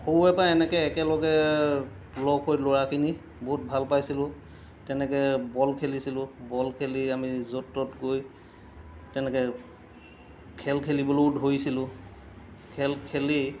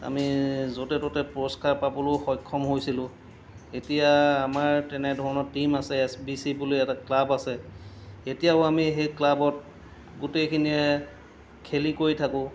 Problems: none marked